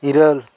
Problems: none marked